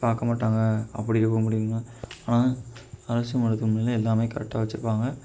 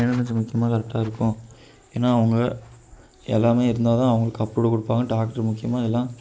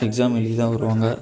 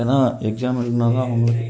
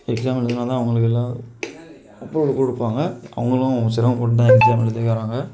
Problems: none marked